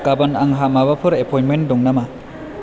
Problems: background conversations at intervals